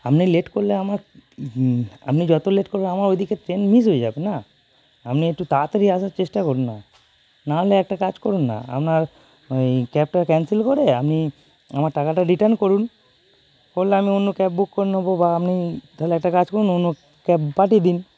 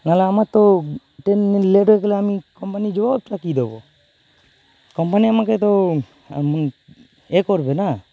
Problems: constant background noise